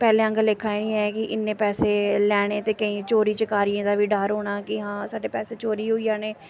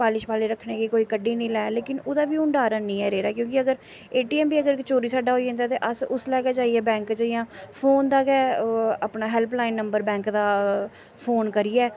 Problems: none marked